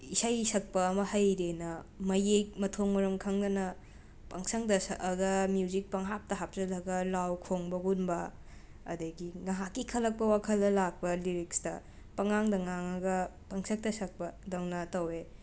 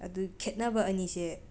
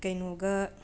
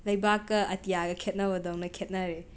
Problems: background sounds at intervals